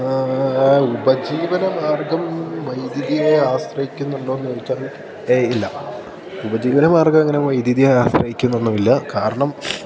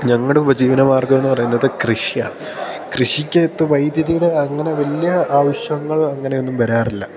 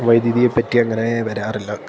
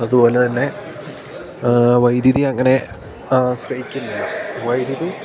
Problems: constant background noise